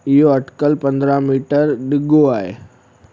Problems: constant background noise